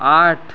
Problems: constant background noise